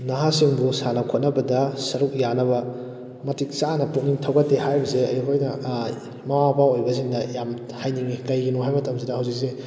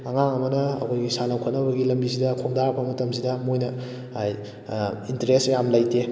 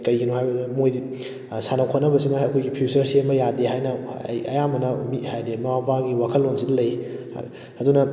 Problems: none marked